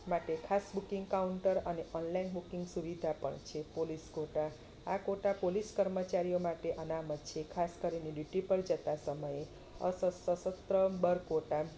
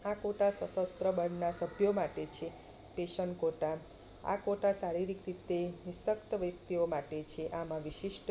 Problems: constant background noise